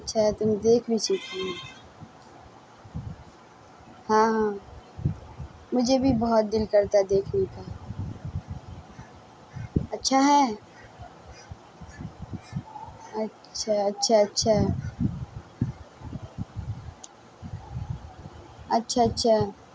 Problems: constant background noise, low volume